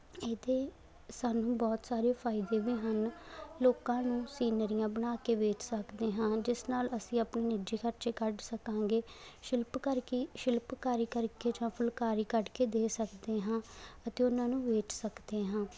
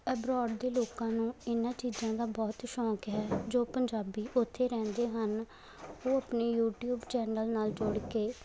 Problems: background sounds at intervals